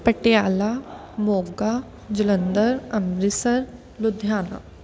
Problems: background sounds at intervals